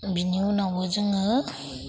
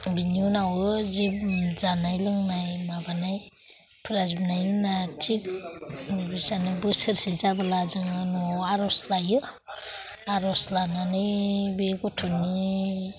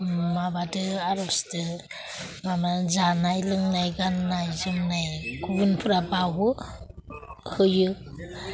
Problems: constant background noise